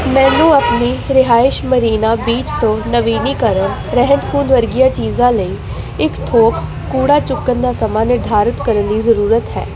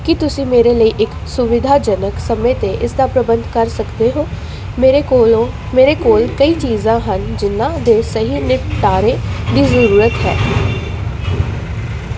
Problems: constant background noise